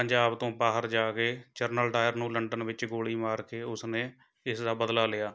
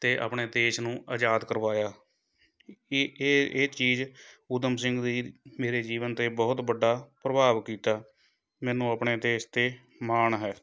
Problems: background conversations at intervals